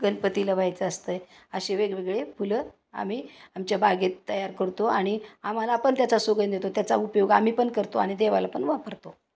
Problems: none marked